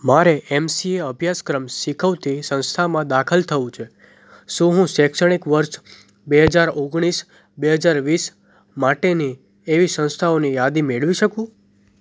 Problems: none marked